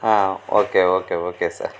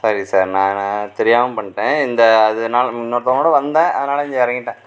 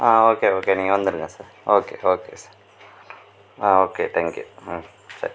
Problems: none marked